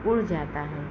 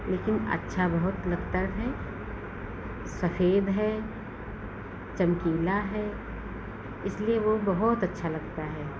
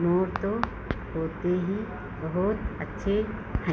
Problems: none marked